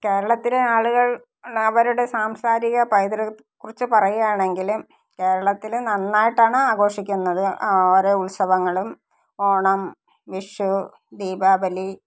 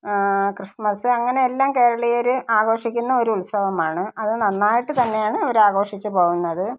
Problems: none marked